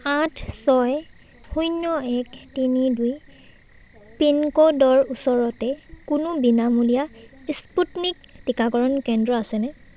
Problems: none marked